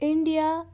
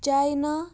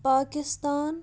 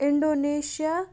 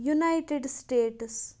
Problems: none marked